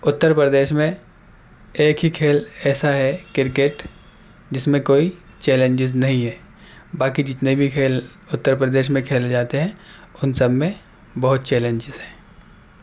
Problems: background sounds at intervals